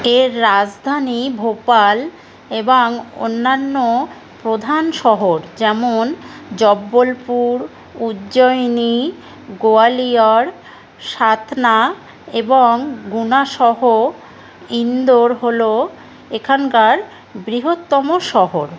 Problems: none marked